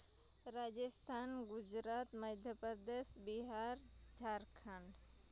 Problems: constant background noise, low volume